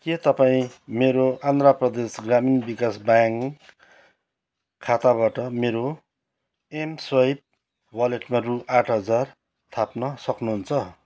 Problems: background sounds at intervals